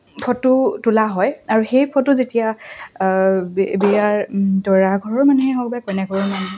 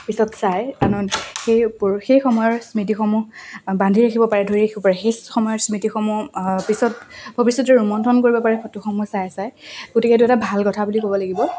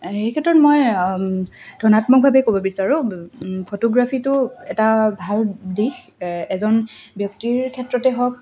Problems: constant background noise